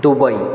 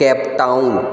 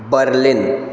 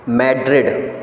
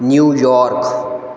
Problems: background sounds at intervals